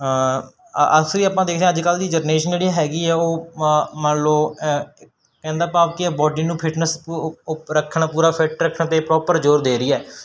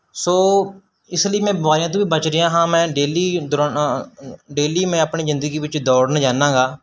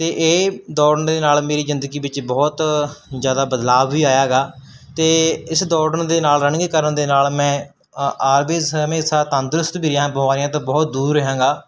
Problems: none marked